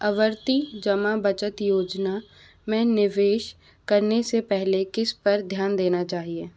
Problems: none marked